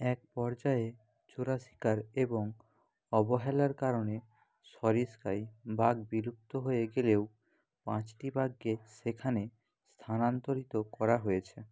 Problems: none marked